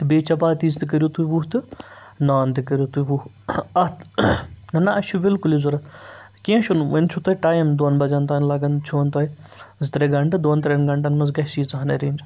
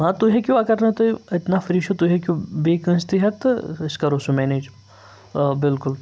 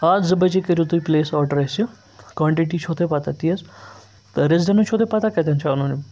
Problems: none marked